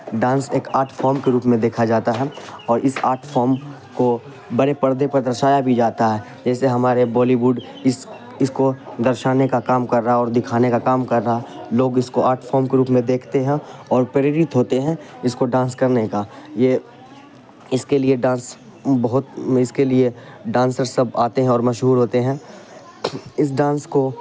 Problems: constant background noise